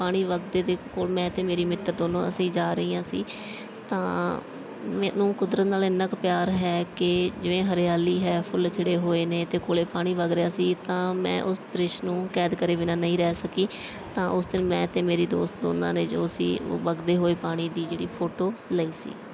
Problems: background sounds at intervals